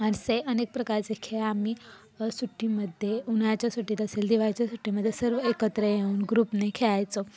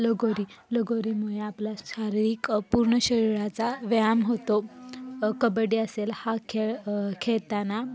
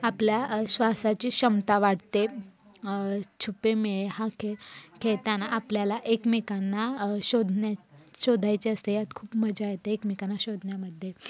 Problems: constant background noise, background conversations at intervals